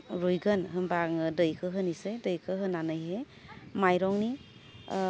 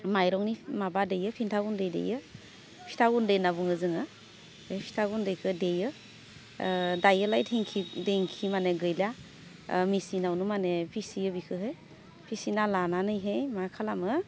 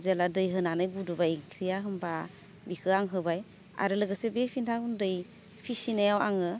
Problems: constant background noise